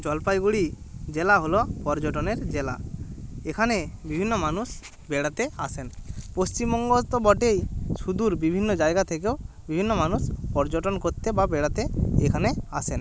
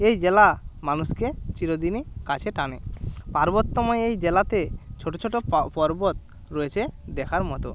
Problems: background sounds at intervals